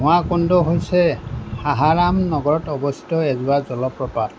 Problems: constant background noise